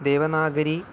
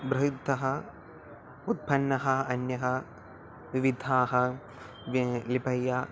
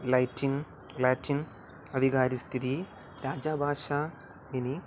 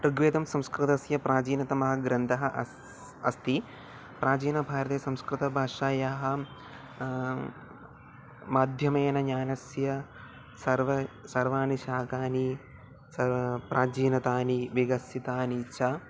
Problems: none marked